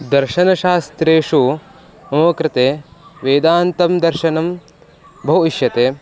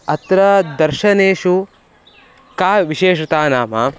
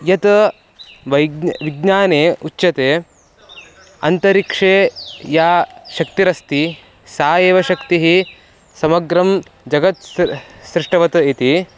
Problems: background sounds at intervals